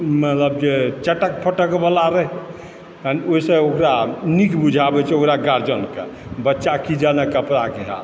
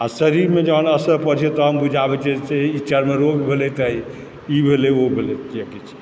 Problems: constant background noise